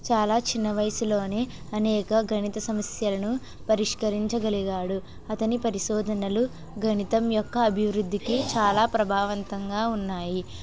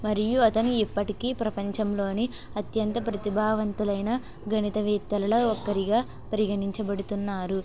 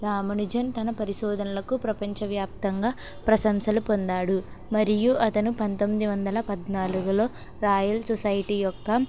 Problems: constant background noise, background conversations at intervals